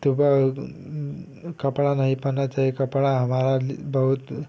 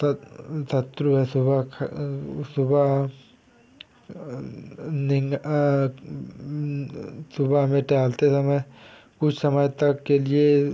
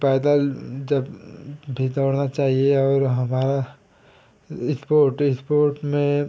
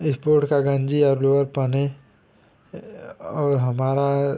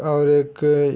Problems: constant background noise